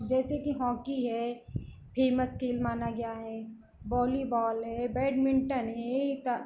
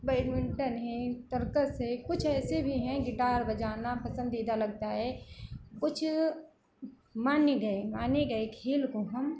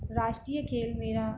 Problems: background sounds at intervals